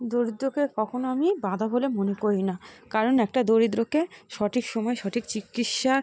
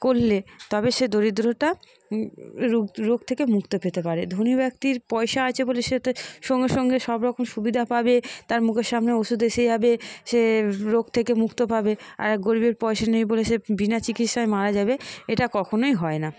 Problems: background conversations at intervals